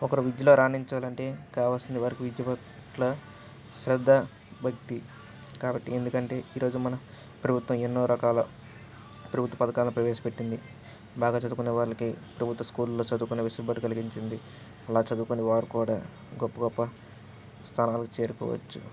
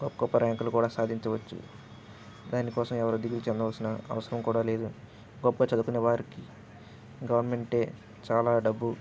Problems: background sounds at intervals